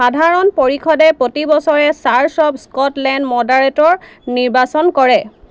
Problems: none marked